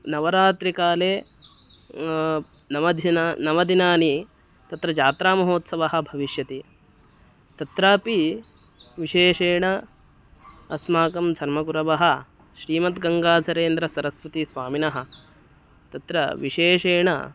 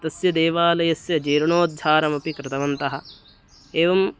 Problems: constant background noise